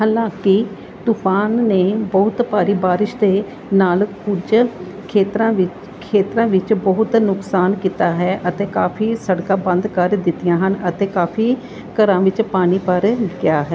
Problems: none marked